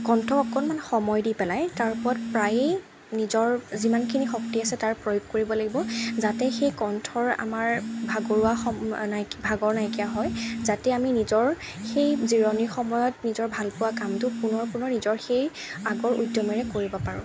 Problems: none marked